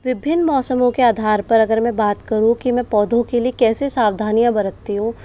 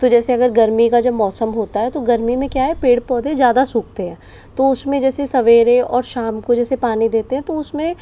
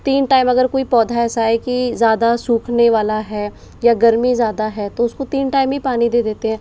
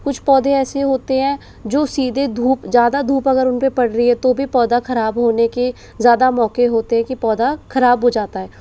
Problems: background sounds at intervals